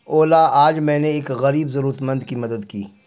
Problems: none marked